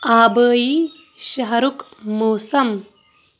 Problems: constant background noise